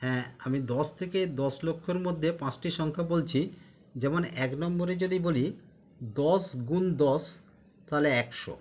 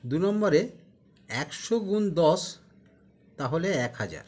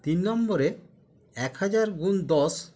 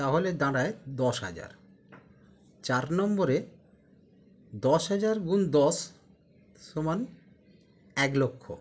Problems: continuous background conversations